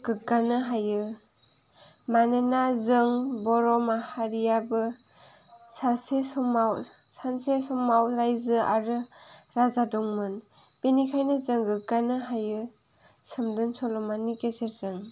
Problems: background sounds at intervals